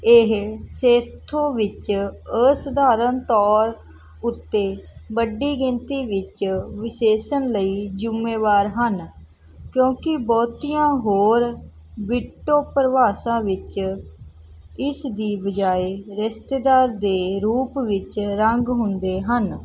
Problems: background sounds at intervals